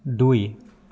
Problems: background conversations at intervals